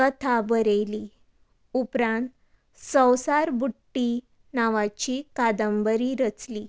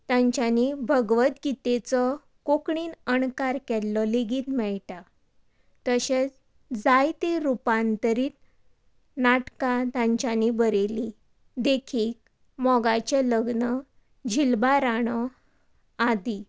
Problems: none marked